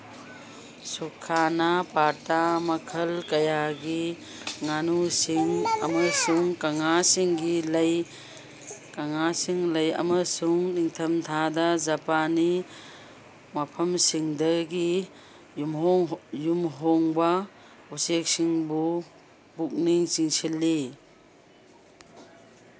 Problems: background sounds at intervals